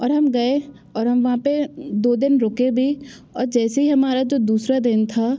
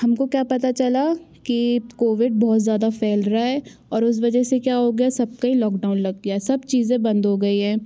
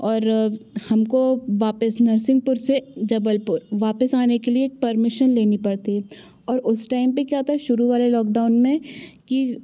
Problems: background sounds at intervals